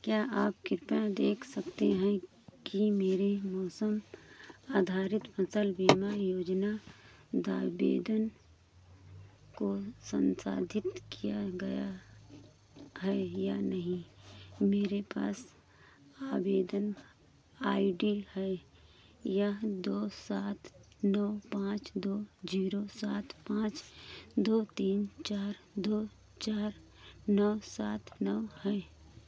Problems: constant background noise